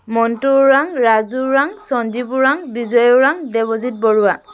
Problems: constant background noise